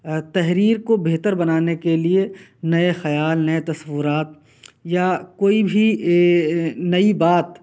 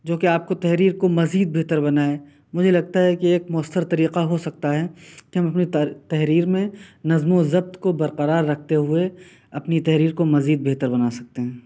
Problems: none marked